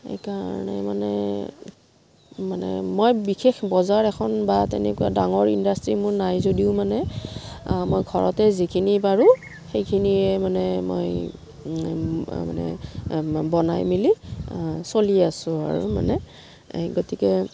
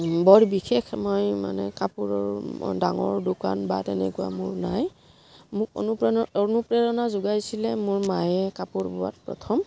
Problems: low volume